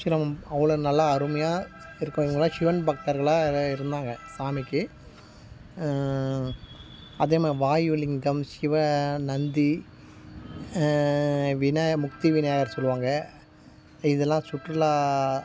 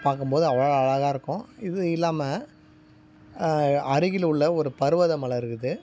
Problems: background sounds at intervals